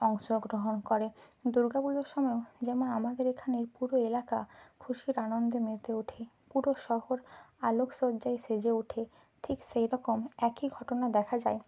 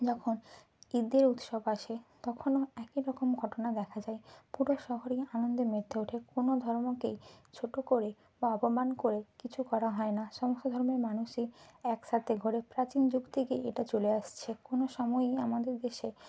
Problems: constant background noise